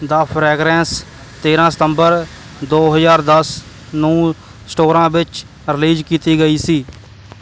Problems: none marked